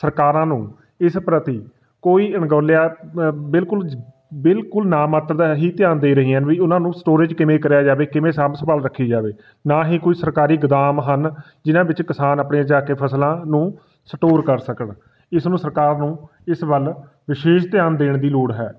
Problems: none marked